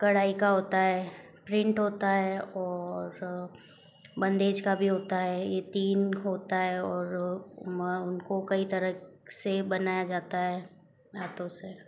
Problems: background sounds at intervals